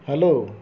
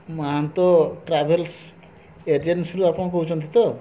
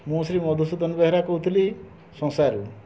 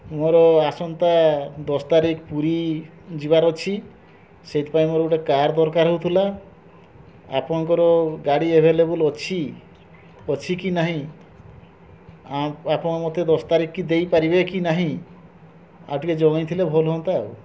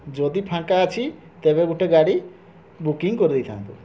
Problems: constant background noise